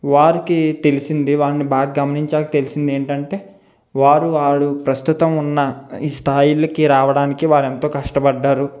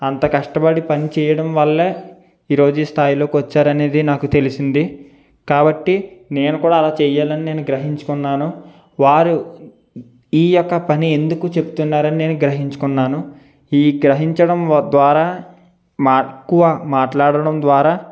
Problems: none marked